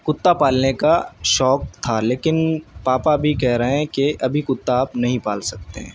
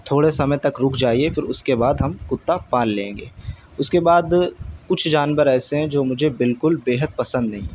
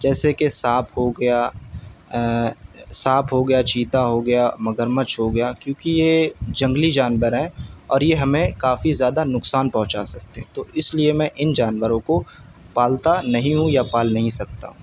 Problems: none marked